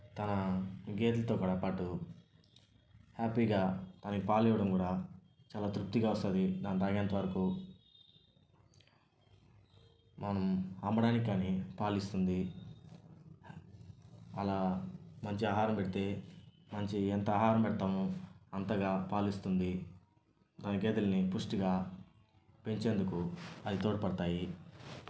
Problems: none marked